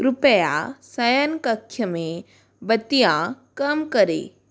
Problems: constant background noise